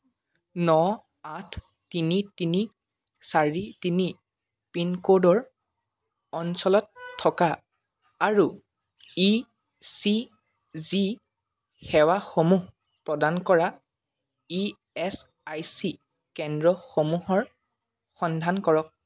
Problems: background sounds at intervals